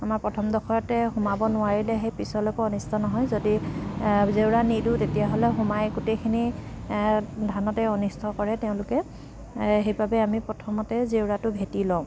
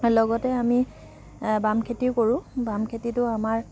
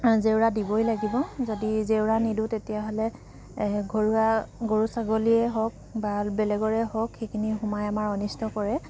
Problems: constant background noise